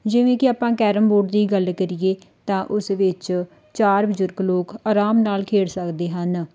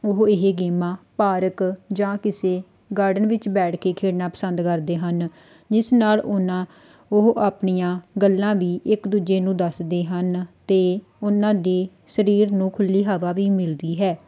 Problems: none marked